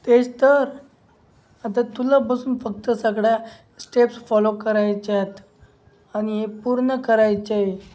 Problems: none marked